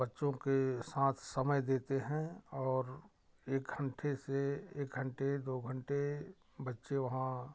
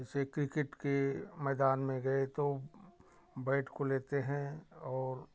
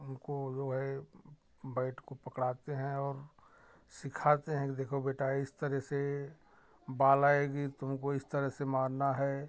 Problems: background sounds at intervals